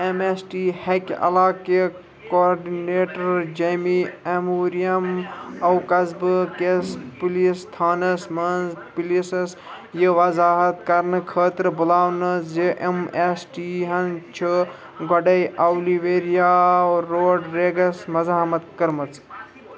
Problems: background sounds at intervals, continuous background conversations